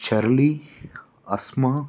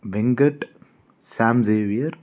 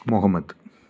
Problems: background sounds at intervals